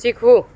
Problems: constant background noise